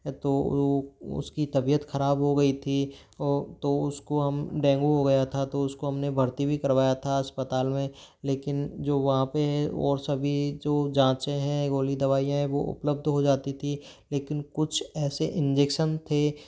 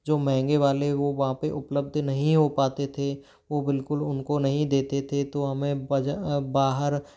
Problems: background sounds at intervals